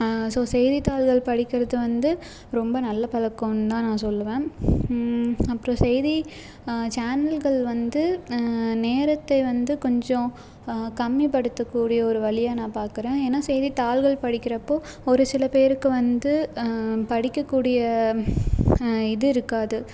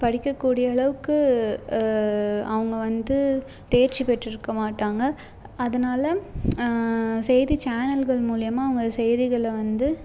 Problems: background sounds at intervals